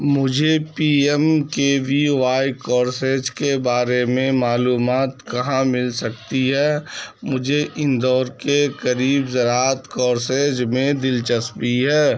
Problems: background sounds at intervals